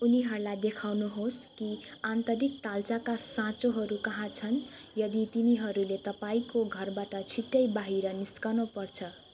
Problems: continuous background conversations